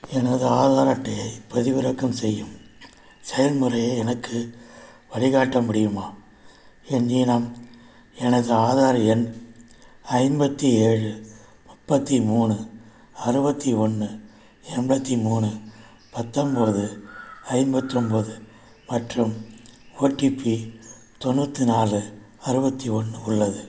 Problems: background sounds at intervals